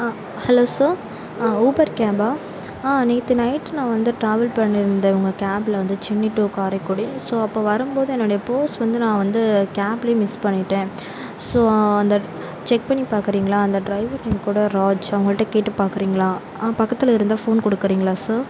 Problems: constant background noise